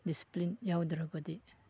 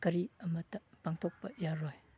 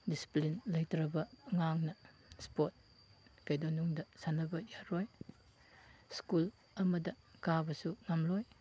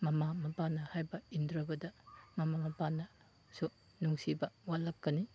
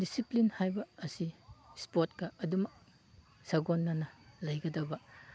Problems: background sounds at intervals, background conversations at intervals